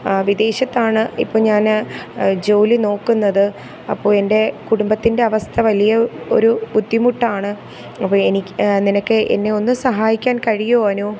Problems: constant background noise